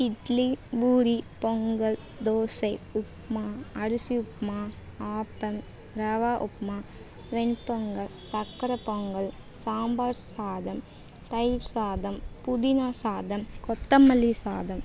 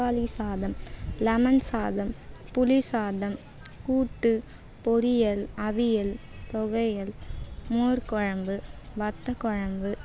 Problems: background sounds at intervals